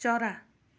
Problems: none marked